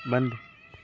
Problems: none marked